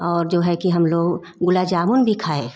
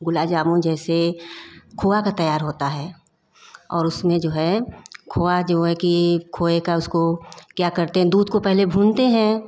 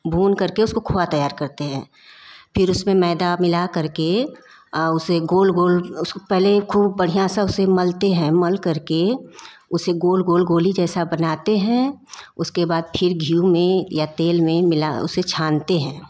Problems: background sounds at intervals